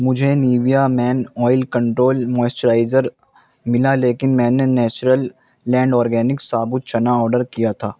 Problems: constant background noise